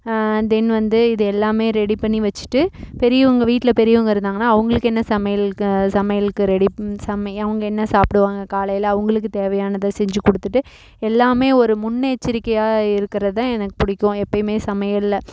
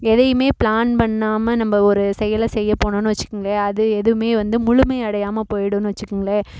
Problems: none marked